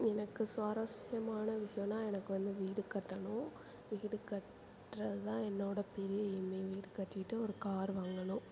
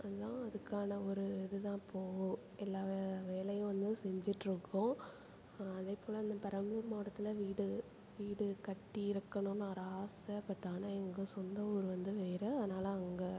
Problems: constant background noise, low volume